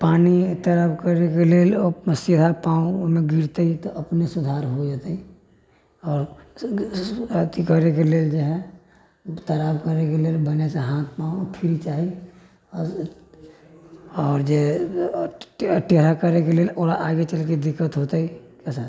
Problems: low volume